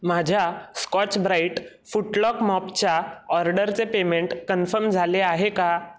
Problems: background sounds at intervals